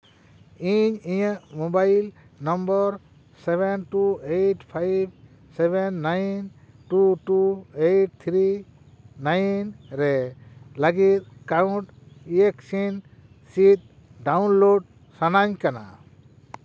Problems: constant background noise